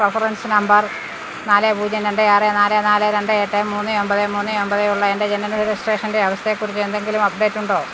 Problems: constant background noise